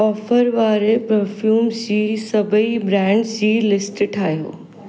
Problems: constant background noise, echo